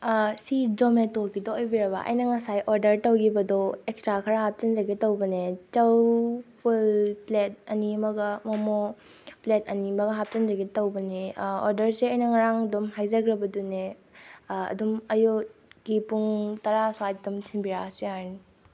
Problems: constant background noise